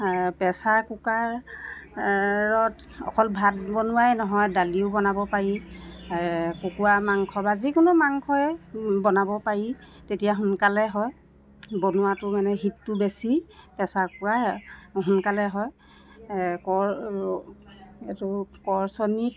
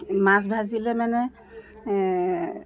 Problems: constant background noise